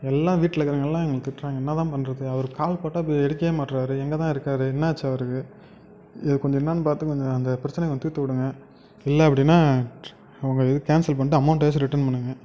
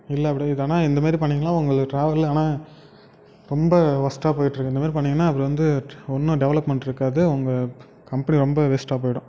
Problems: background sounds at intervals